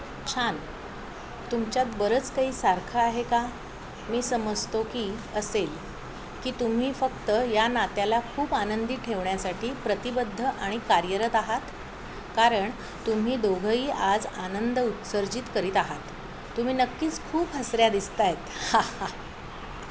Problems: constant background noise